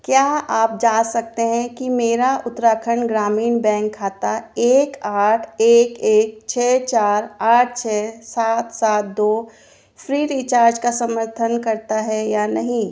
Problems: none marked